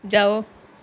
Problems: none marked